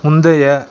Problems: none marked